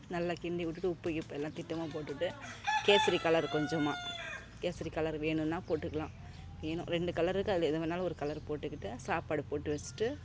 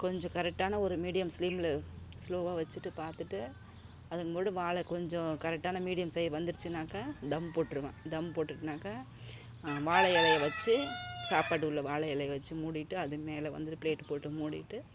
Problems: constant background noise